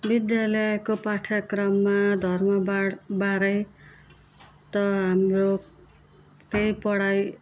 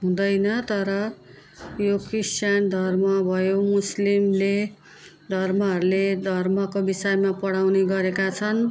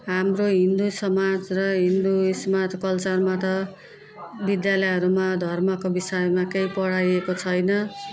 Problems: continuous background conversations